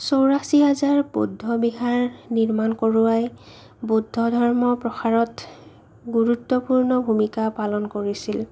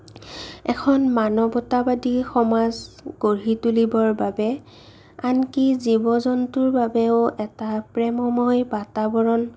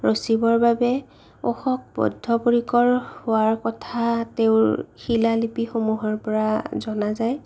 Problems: none marked